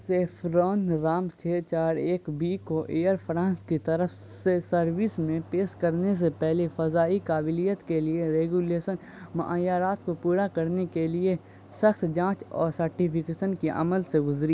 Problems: constant background noise